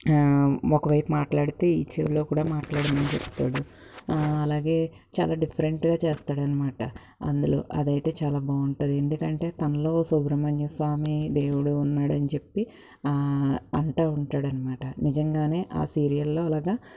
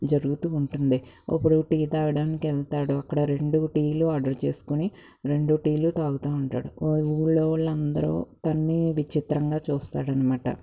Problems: none marked